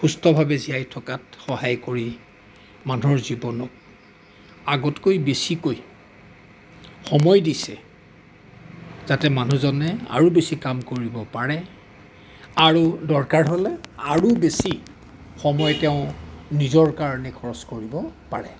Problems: background sounds at intervals